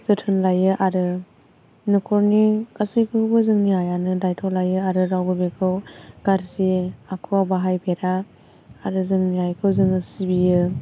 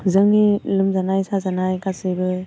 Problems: constant background noise